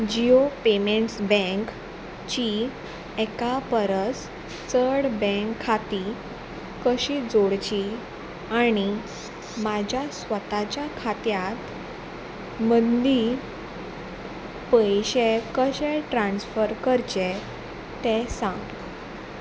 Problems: none marked